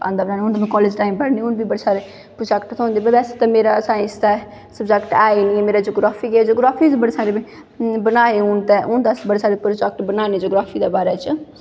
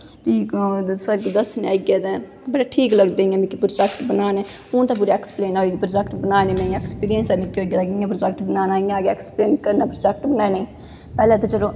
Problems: echo